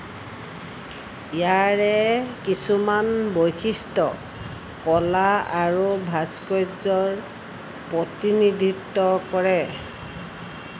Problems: none marked